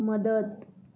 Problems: none marked